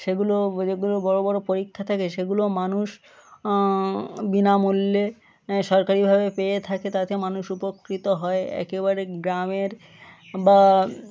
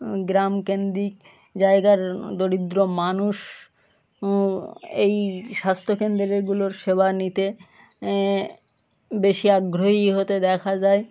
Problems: constant background noise, continuous background conversations